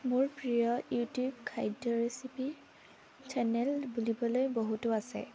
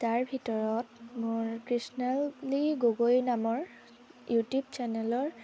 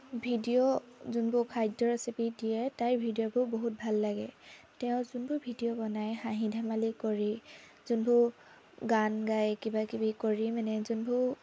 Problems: constant background noise, background conversations at intervals